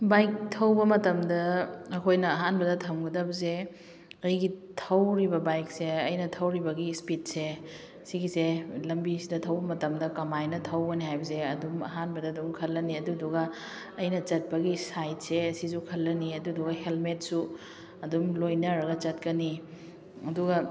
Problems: background conversations at intervals